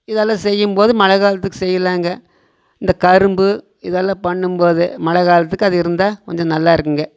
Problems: none marked